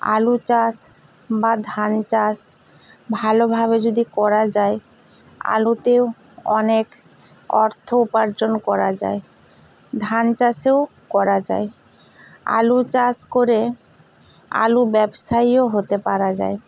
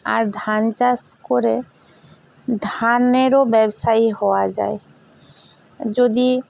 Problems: none marked